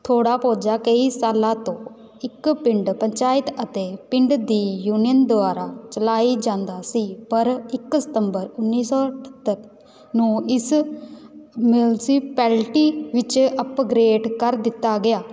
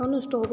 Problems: background sounds at intervals, background conversations at intervals